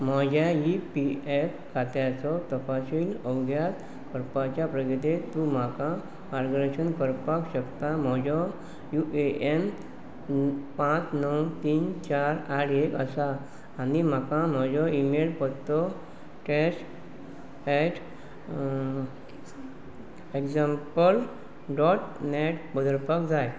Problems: background sounds at intervals